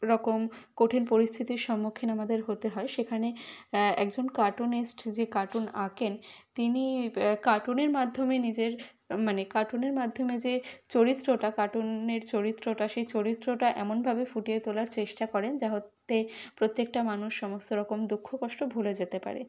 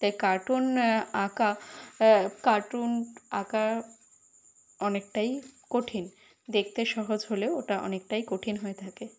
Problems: none marked